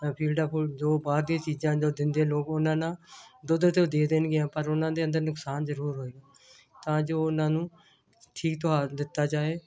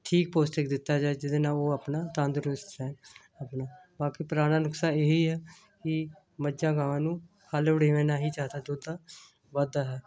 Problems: none marked